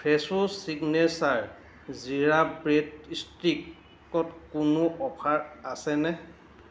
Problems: constant background noise